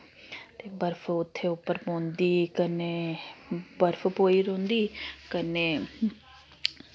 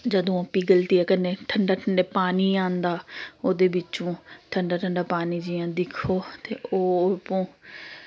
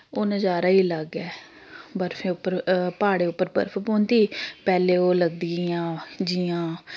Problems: none marked